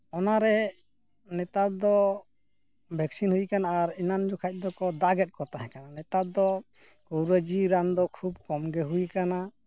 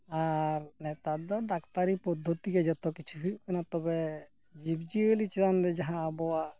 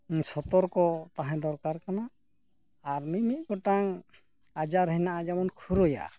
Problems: none marked